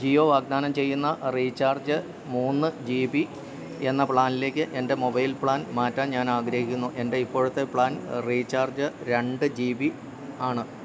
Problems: none marked